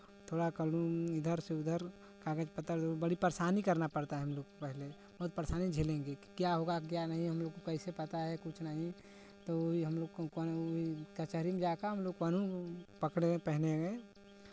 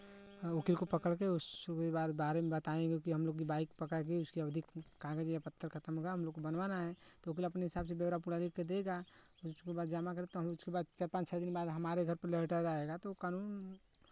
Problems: background sounds at intervals